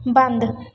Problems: background conversations at intervals